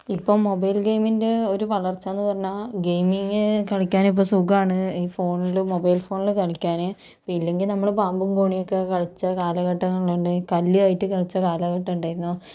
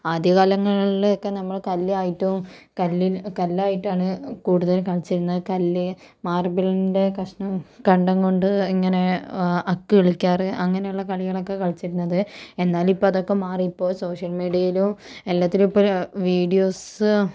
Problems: none marked